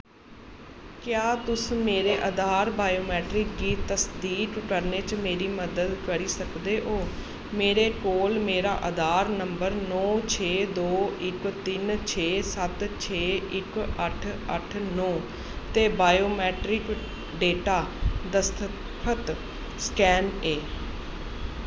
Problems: constant background noise